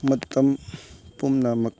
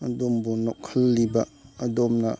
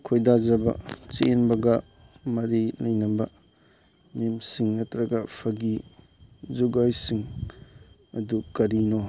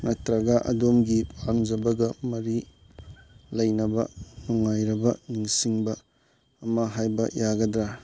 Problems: constant background noise